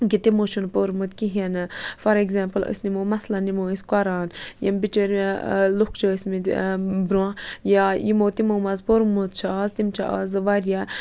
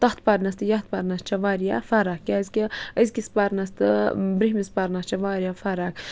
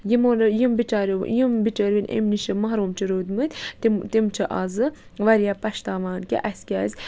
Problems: none marked